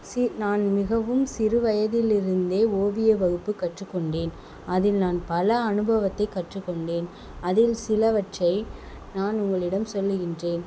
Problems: constant background noise